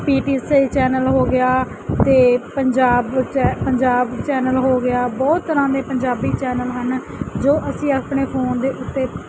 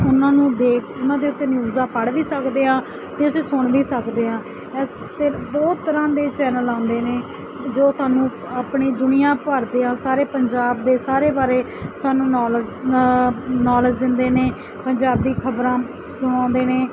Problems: none marked